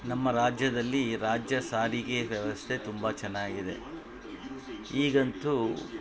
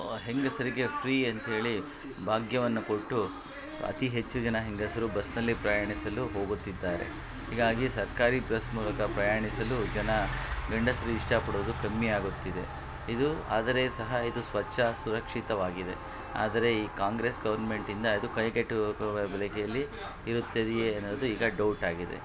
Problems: constant background noise